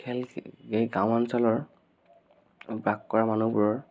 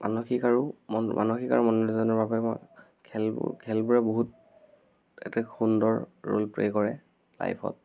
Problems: background sounds at intervals